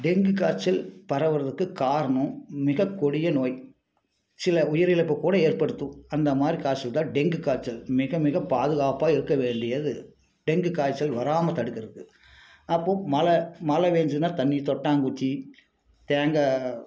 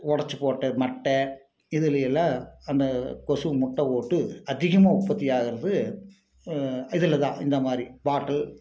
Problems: none marked